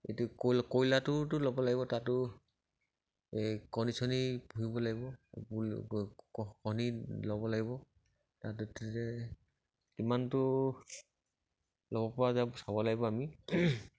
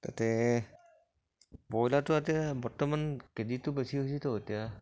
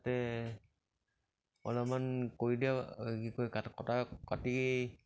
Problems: none marked